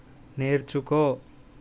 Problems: constant background noise